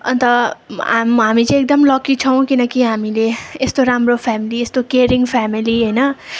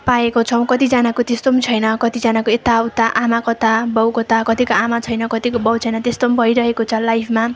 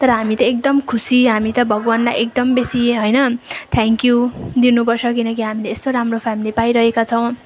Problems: constant background noise, continuous background conversations